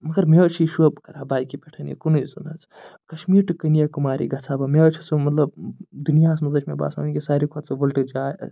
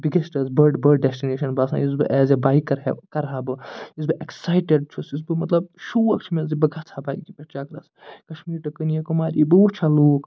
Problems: none marked